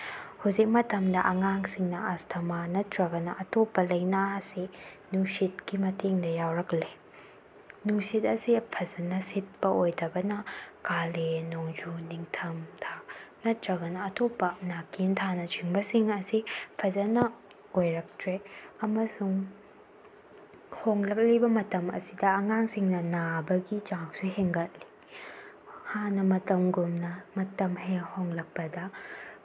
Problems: background sounds at intervals